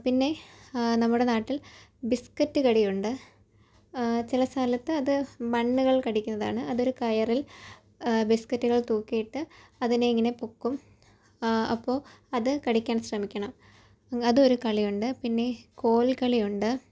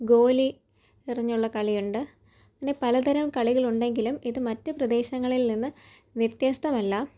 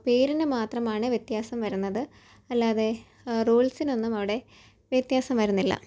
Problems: low volume